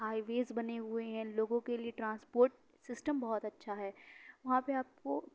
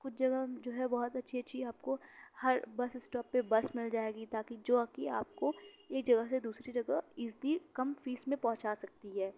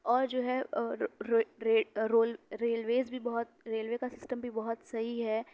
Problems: none marked